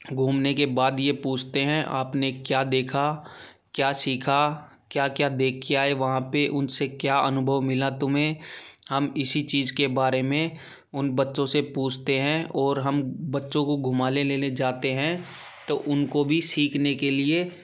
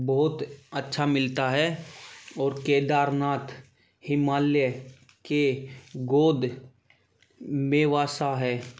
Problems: background sounds at intervals